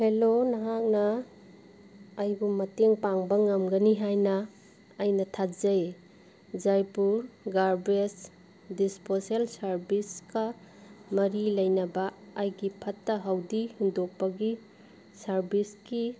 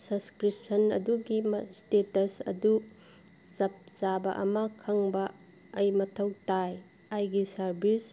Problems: background sounds at intervals